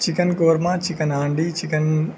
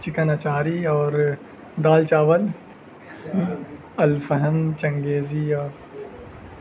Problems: constant background noise